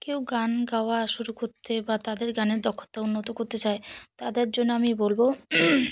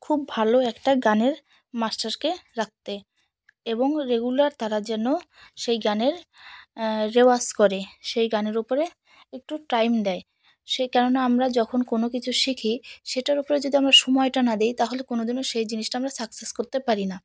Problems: none marked